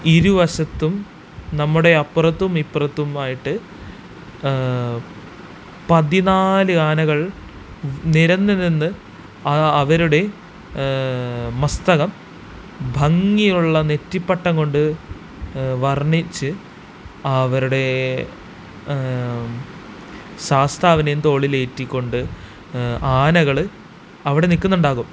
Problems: constant background noise